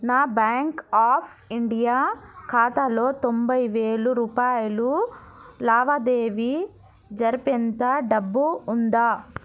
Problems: none marked